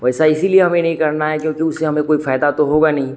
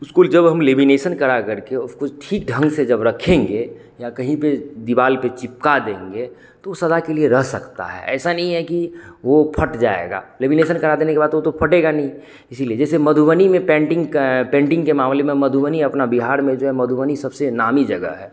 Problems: constant background noise, background conversations at intervals